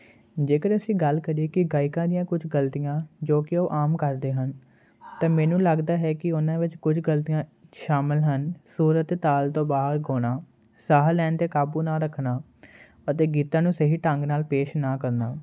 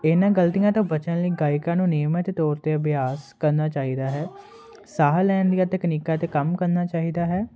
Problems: constant background noise